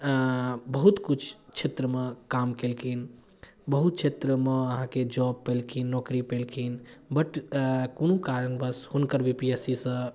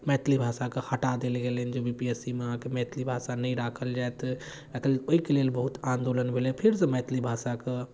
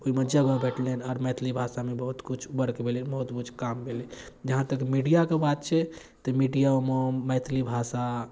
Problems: none marked